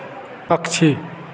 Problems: none marked